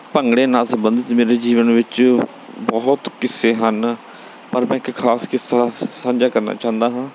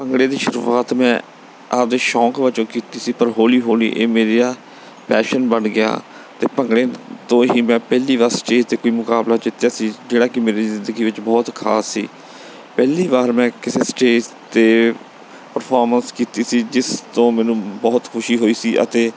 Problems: background sounds at intervals